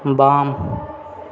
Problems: background conversations at intervals